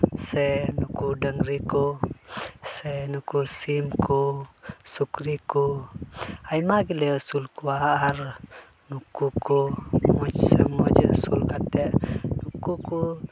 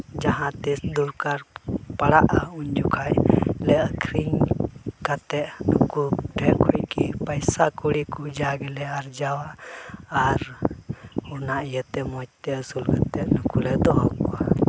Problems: constant background noise